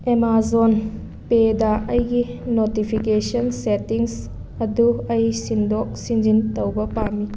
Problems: constant background noise